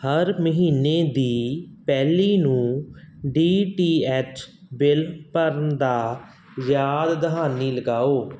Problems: background sounds at intervals